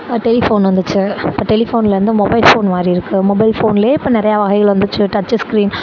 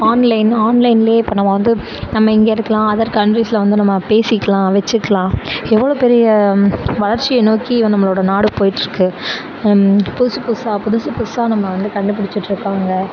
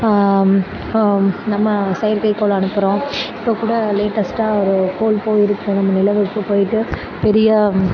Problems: none marked